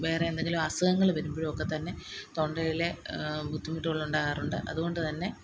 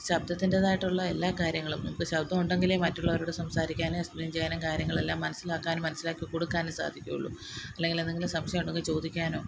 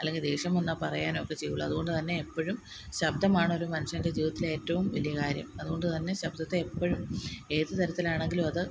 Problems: none marked